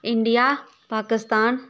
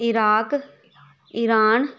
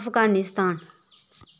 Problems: background sounds at intervals, background conversations at intervals